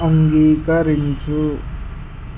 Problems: constant background noise